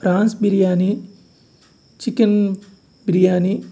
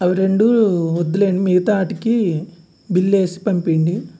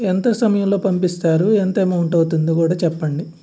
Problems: none marked